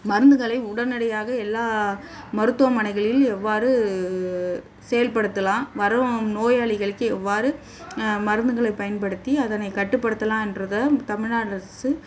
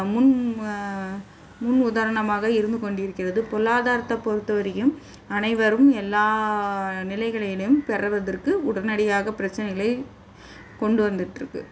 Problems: background sounds at intervals